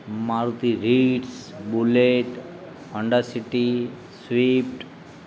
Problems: constant background noise